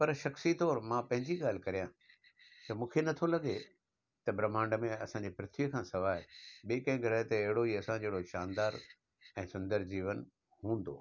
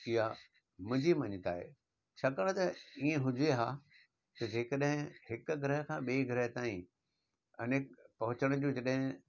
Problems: constant background noise